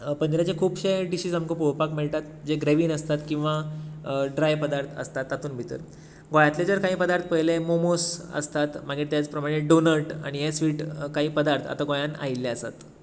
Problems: constant background noise